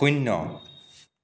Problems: none marked